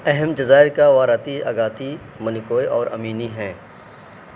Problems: constant background noise